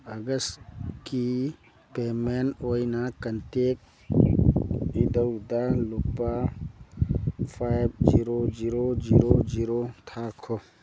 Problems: background sounds at intervals